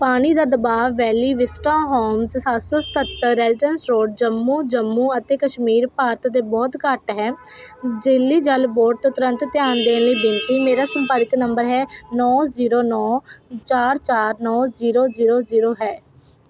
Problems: constant background noise